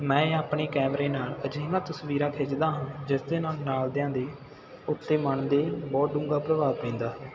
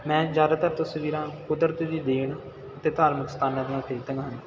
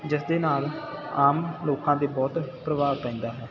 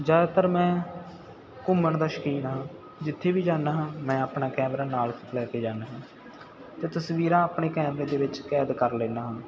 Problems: continuous background conversations